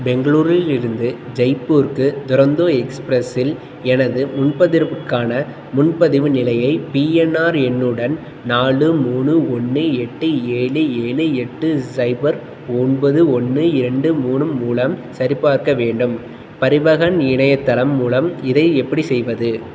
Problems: constant background noise